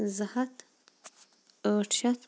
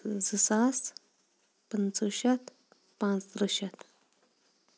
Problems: background sounds at intervals